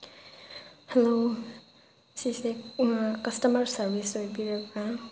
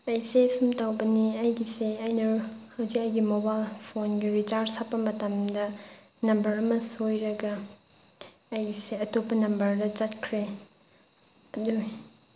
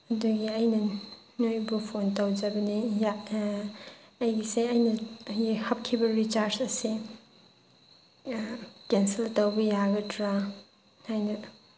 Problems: constant background noise